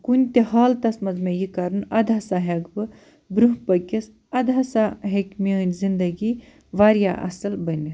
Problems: none marked